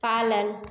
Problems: none marked